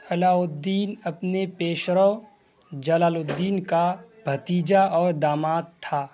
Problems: constant background noise